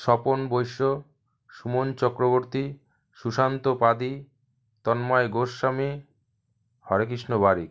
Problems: background sounds at intervals